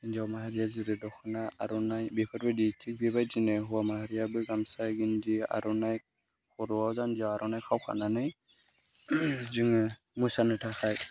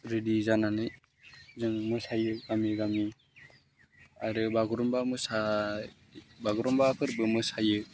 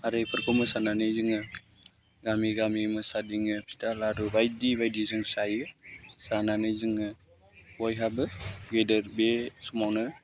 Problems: low volume